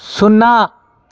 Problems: constant background noise